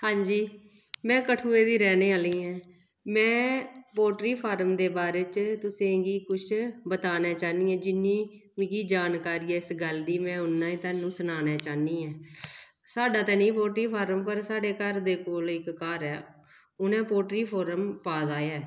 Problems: echo